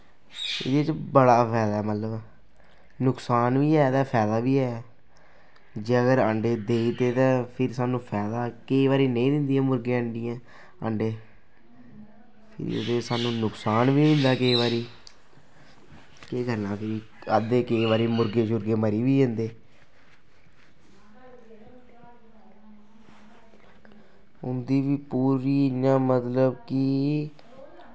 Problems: constant background noise